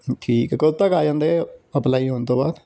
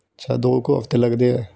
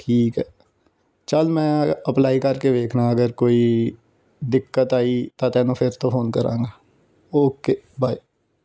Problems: background sounds at intervals